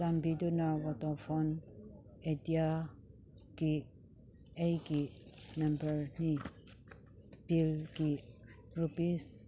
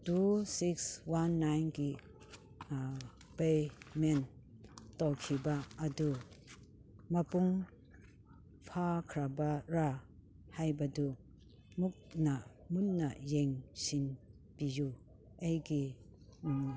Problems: background sounds at intervals